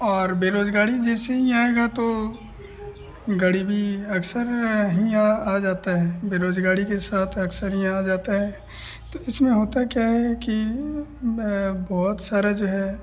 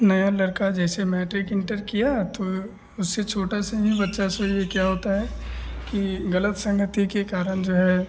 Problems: none marked